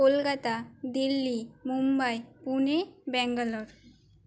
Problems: constant background noise